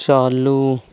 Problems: constant background noise